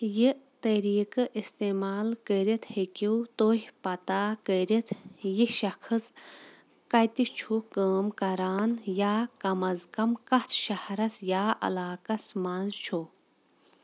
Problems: constant background noise